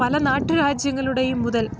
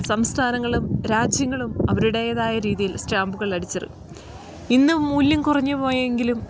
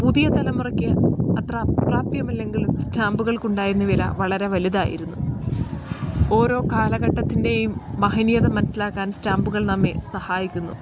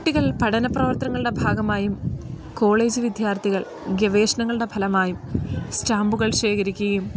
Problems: none marked